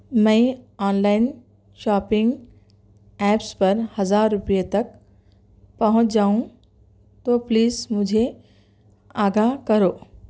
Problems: none marked